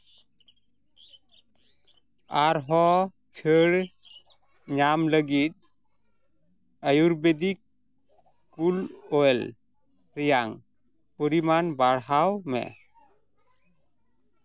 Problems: background conversations at intervals